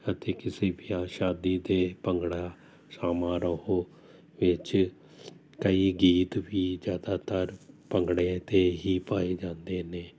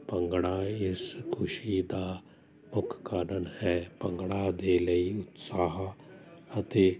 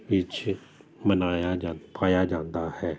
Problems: none marked